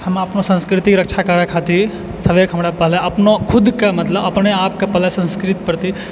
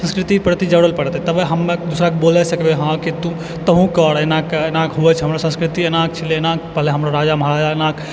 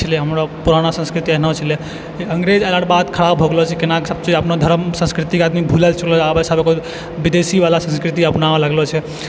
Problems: constant background noise